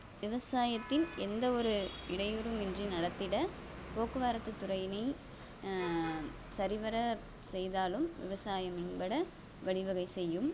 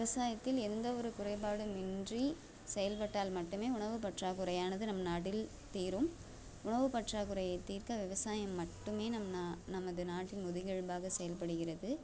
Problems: constant background noise